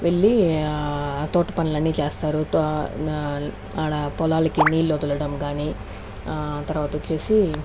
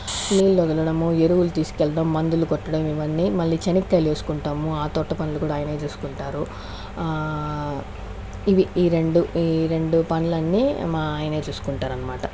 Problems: background sounds at intervals